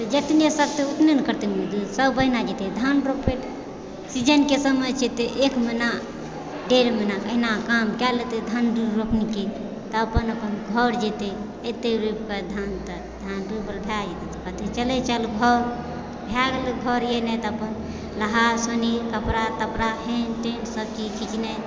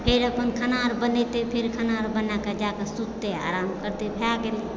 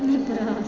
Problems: constant background noise, continuous background conversations